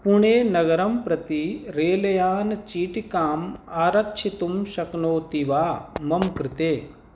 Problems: background sounds at intervals